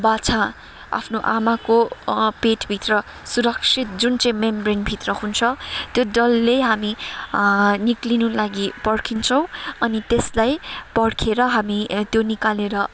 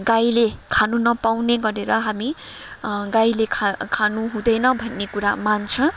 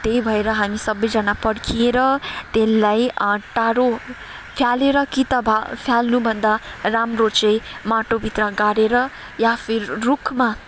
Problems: background sounds at intervals, background conversations at intervals